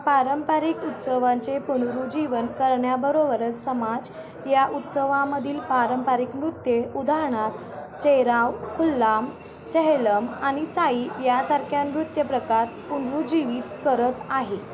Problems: constant background noise